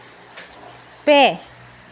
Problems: constant background noise